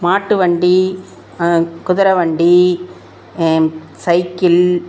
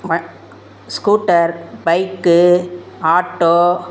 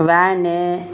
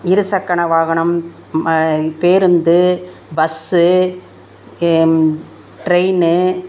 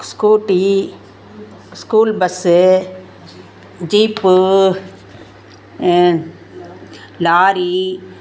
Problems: background conversations at intervals